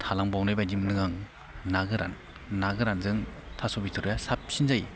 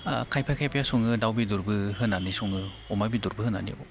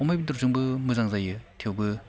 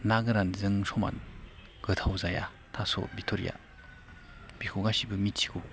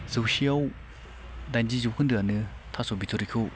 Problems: none marked